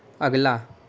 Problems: constant background noise